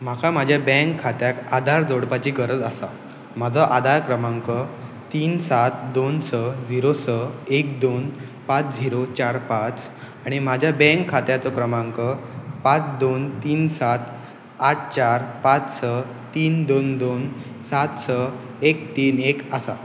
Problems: background sounds at intervals